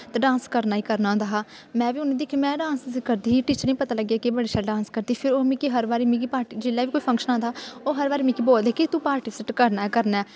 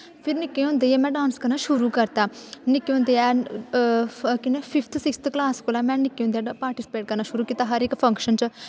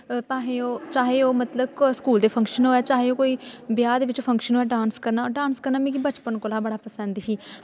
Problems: background sounds at intervals, echo